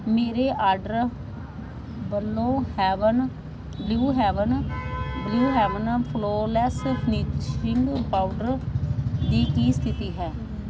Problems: none marked